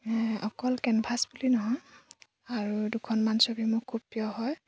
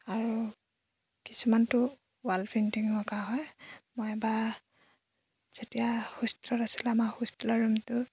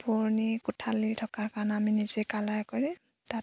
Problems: background sounds at intervals